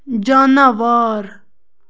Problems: constant background noise